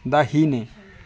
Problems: continuous background conversations